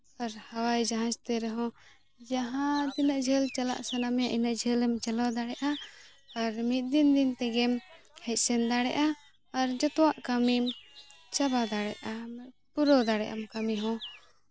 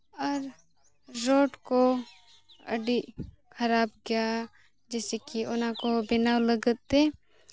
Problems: background sounds at intervals